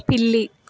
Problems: constant background noise